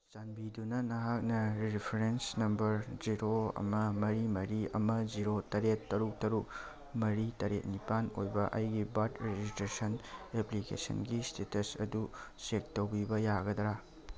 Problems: background sounds at intervals